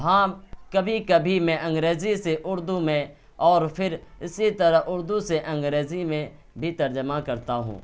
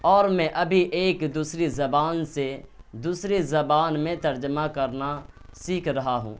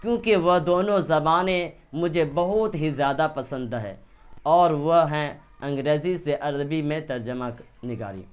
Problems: none marked